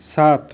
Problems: constant background noise